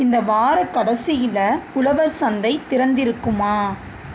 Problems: none marked